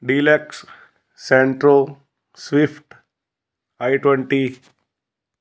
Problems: background sounds at intervals